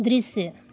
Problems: none marked